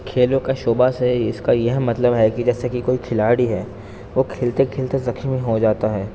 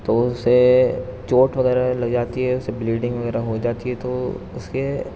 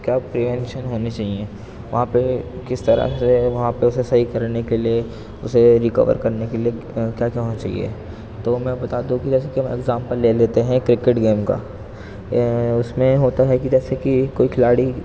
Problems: constant background noise, background conversations at intervals, low volume